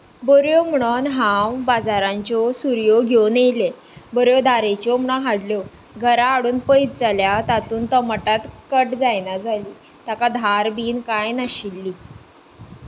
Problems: none marked